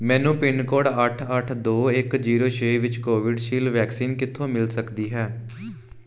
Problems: background sounds at intervals